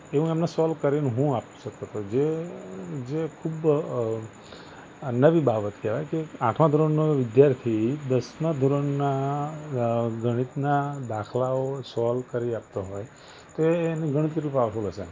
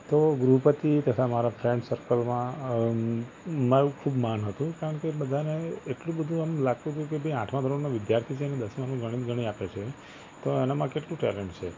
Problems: constant background noise